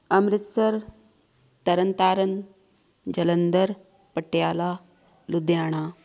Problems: background sounds at intervals, background conversations at intervals